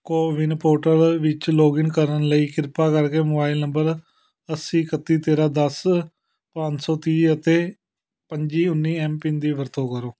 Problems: none marked